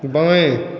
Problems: constant background noise, echo